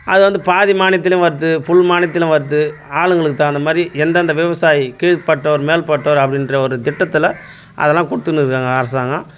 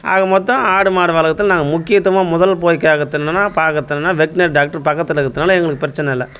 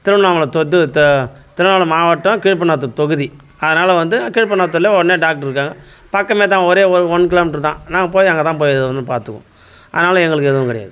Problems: constant background noise